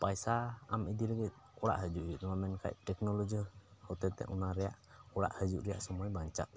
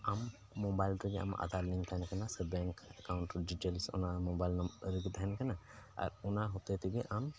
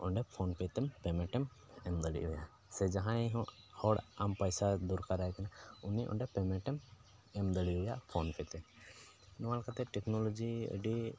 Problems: background sounds at intervals, low volume